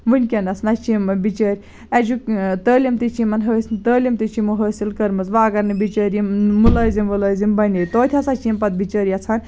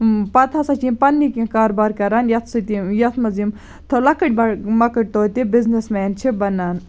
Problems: none marked